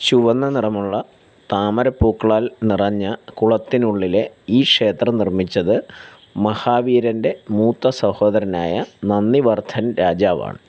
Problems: constant background noise